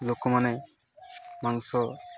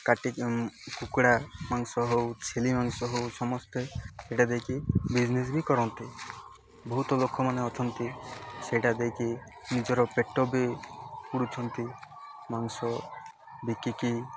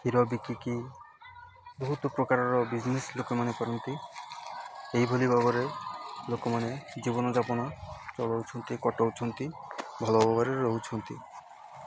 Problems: constant background noise